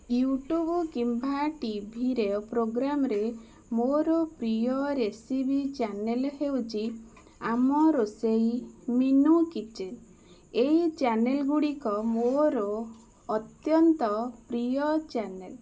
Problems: constant background noise